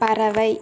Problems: constant background noise